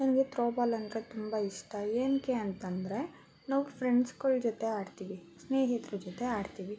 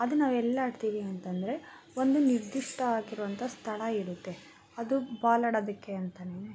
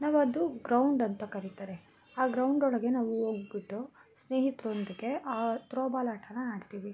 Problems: background sounds at intervals